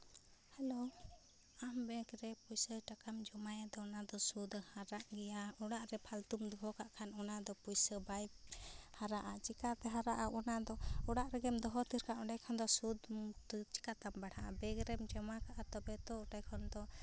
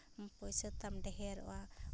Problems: none marked